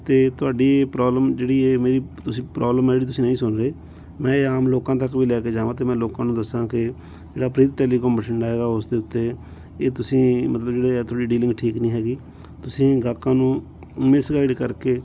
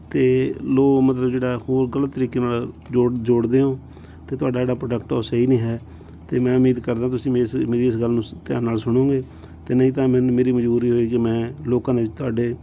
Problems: background sounds at intervals